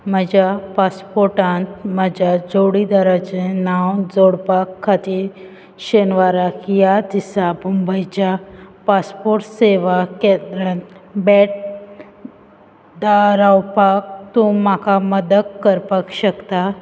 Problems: background sounds at intervals